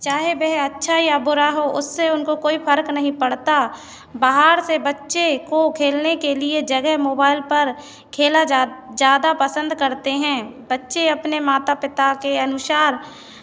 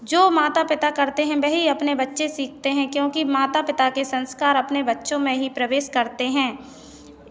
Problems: none marked